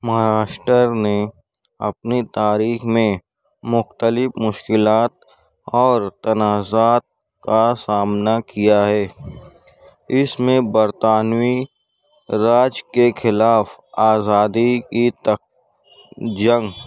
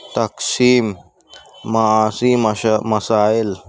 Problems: background sounds at intervals